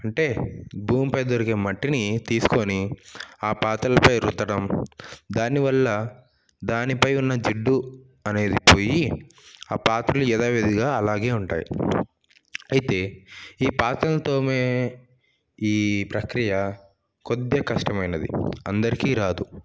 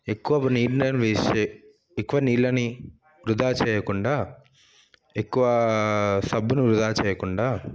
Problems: background sounds at intervals